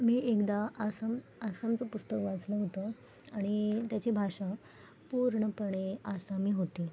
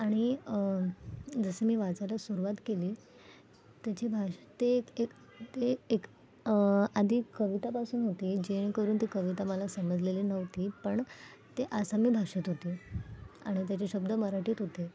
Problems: background sounds at intervals, background conversations at intervals